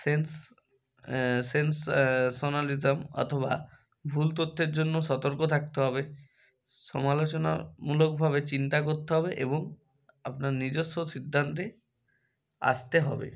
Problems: background sounds at intervals